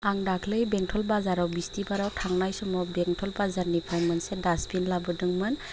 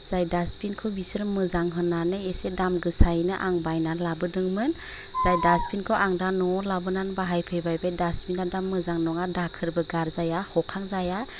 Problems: constant background noise